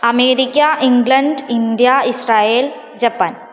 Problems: none marked